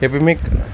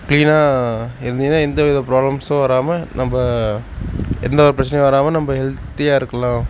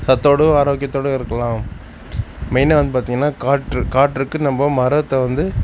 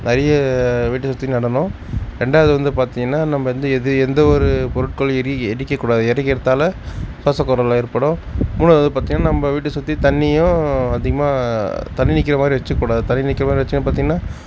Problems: none marked